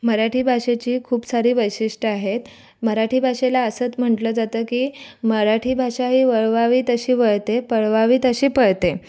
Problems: background sounds at intervals, background conversations at intervals